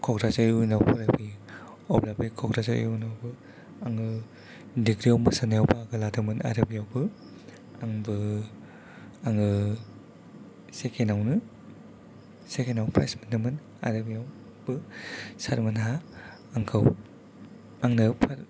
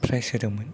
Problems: background conversations at intervals, low volume